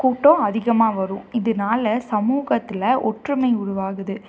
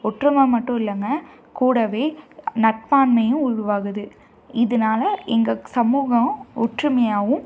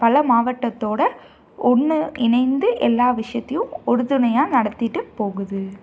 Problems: none marked